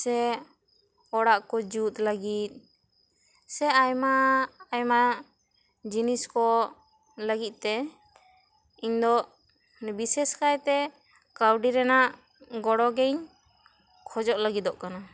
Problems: constant background noise